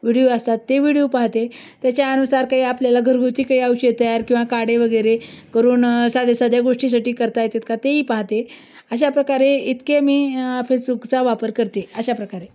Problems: constant background noise, background conversations at intervals